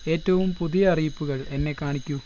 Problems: background sounds at intervals